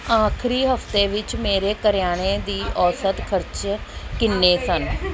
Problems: none marked